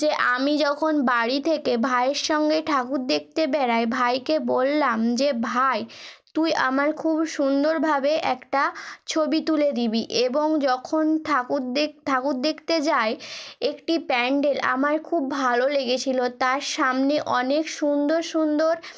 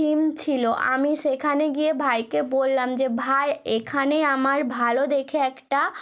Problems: background sounds at intervals